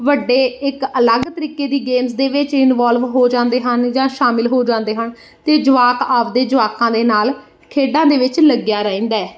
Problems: background sounds at intervals